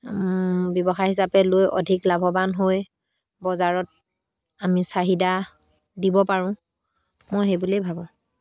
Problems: background sounds at intervals